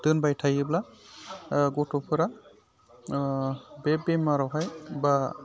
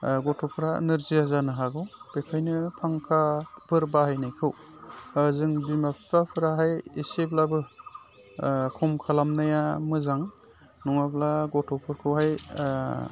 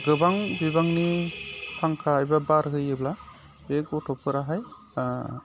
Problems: none marked